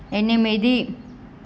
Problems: constant background noise